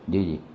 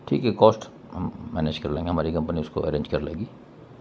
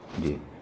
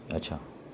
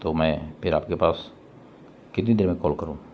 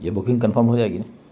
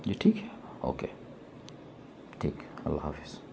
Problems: constant background noise